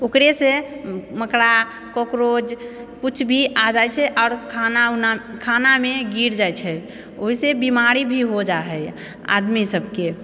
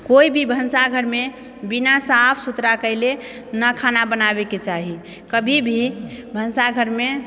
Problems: none marked